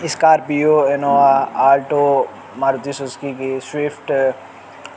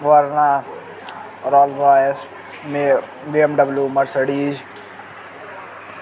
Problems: constant background noise